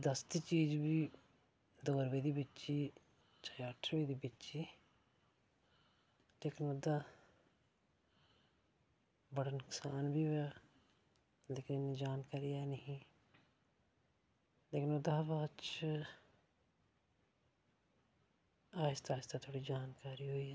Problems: low volume